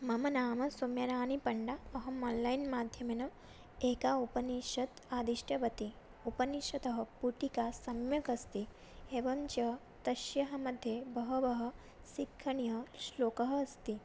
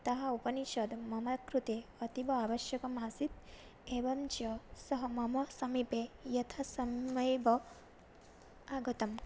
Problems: none marked